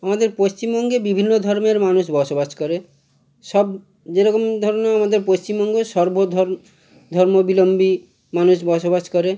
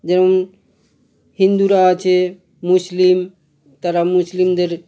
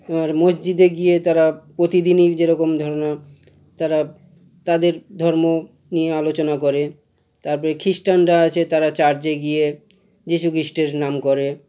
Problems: none marked